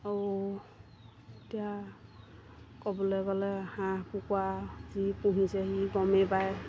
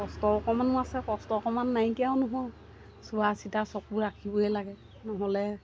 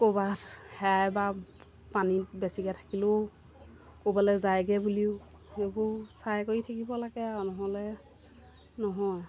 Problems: constant background noise